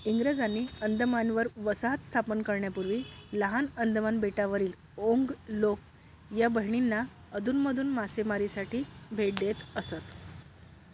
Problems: none marked